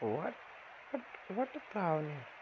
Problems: constant background noise